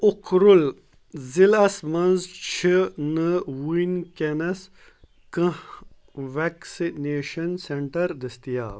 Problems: none marked